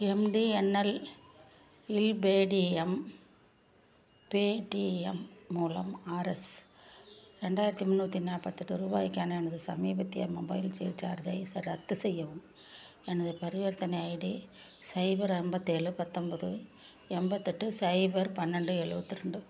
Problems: low volume